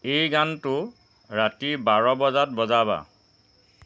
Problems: constant background noise